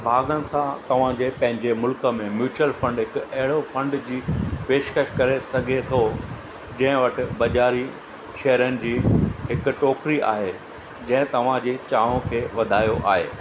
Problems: constant background noise, echo